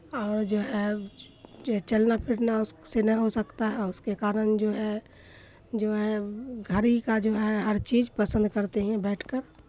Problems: none marked